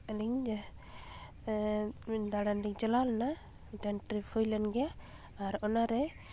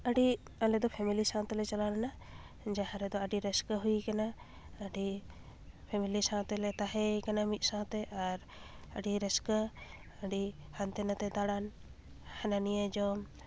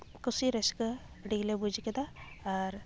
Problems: background sounds at intervals